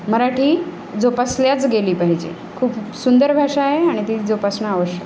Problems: none marked